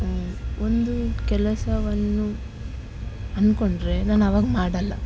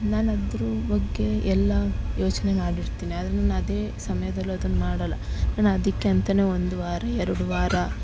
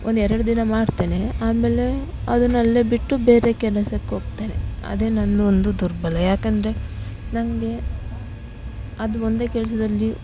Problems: constant background noise